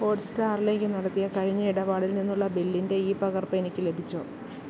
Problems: constant background noise